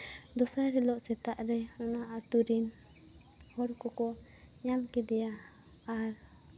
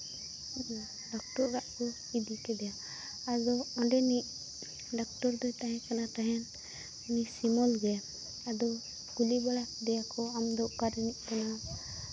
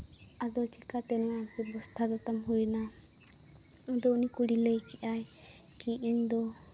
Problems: none marked